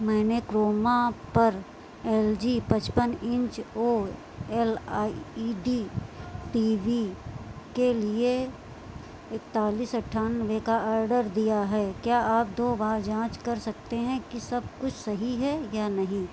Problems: constant background noise